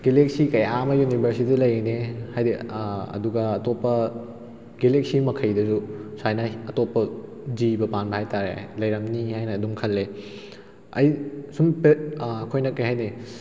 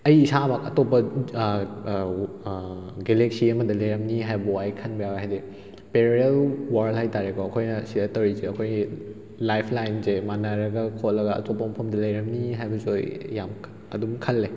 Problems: background sounds at intervals